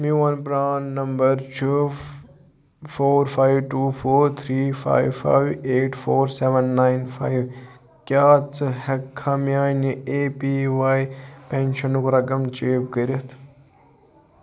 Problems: background conversations at intervals